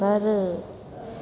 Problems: constant background noise, echo